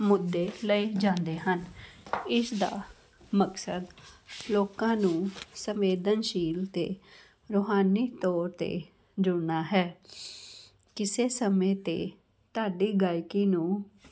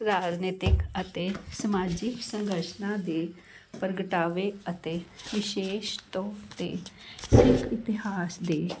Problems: constant background noise, continuous background conversations